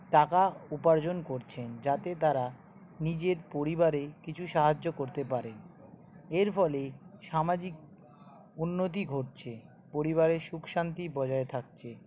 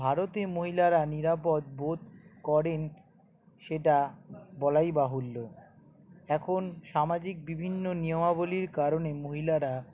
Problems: background sounds at intervals, background conversations at intervals